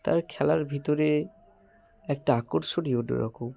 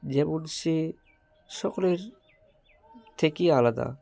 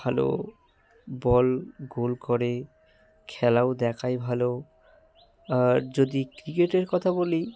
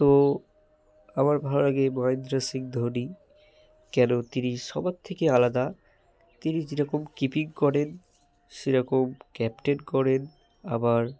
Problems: constant background noise